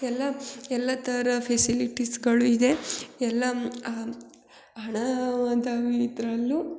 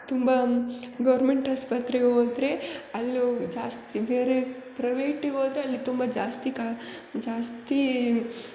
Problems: none marked